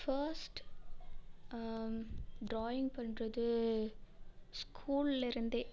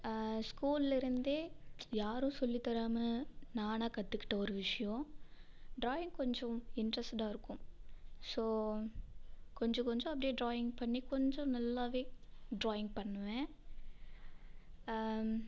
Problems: background sounds at intervals